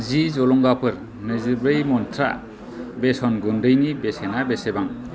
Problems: constant background noise